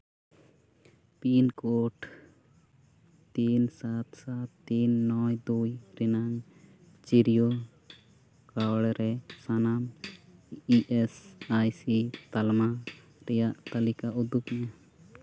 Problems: background sounds at intervals